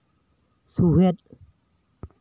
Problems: echo